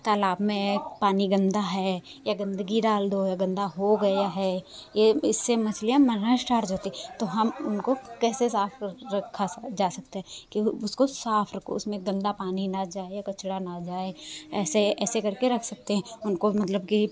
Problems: constant background noise